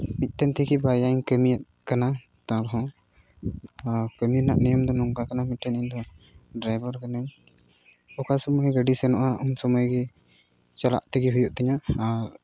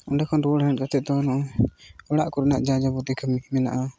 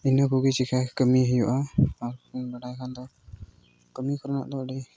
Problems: none marked